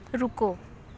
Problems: background sounds at intervals